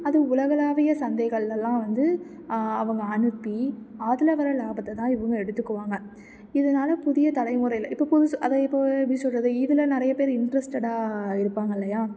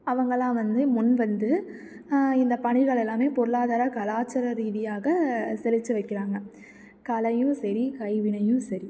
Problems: background sounds at intervals